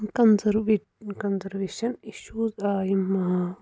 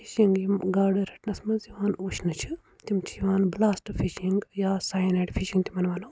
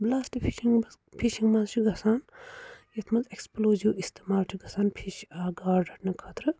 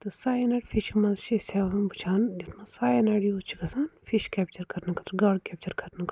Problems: none marked